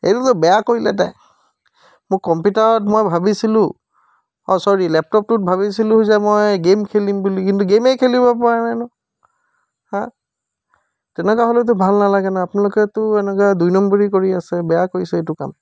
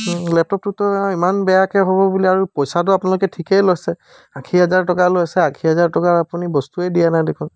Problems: background sounds at intervals